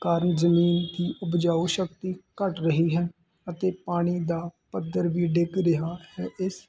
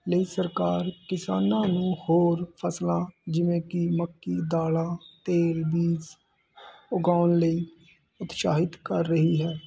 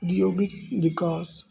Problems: constant background noise